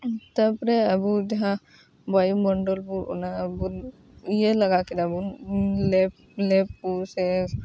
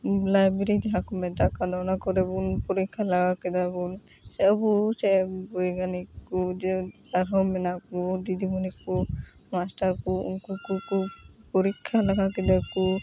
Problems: background sounds at intervals, background conversations at intervals